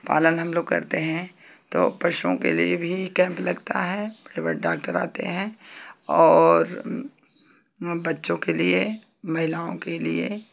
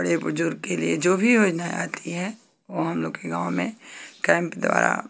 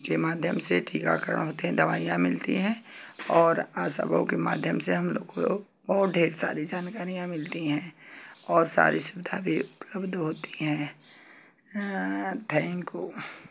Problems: none marked